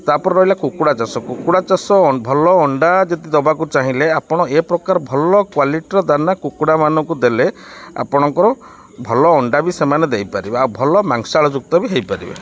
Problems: background sounds at intervals